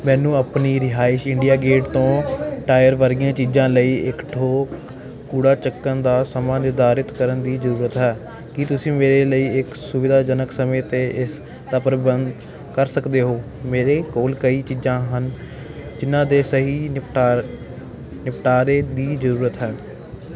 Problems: continuous background conversations